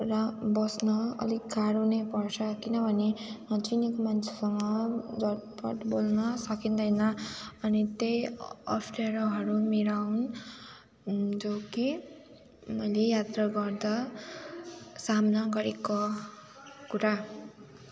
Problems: none marked